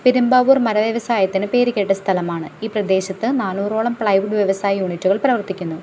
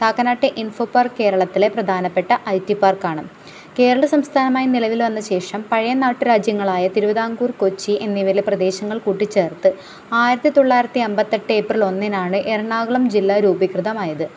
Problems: background sounds at intervals